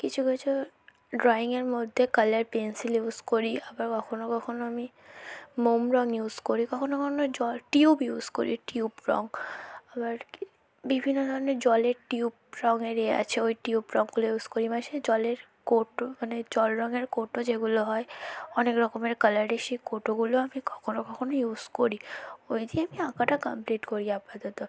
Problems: background conversations at intervals, low volume